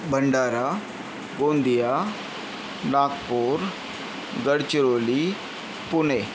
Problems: constant background noise